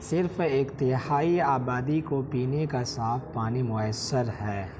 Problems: constant background noise